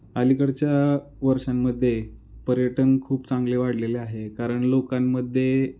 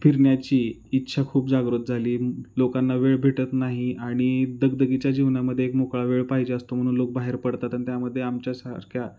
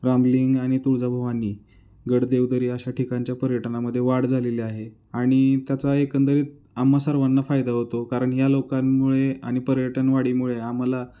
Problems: constant background noise